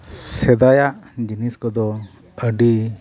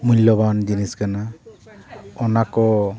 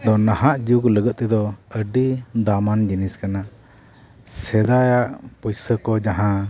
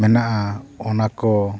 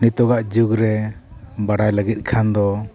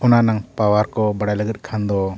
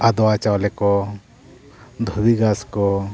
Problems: none marked